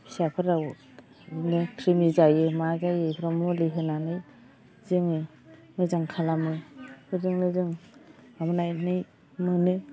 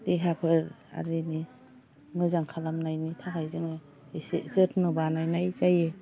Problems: low volume